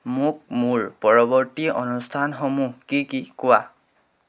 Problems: none marked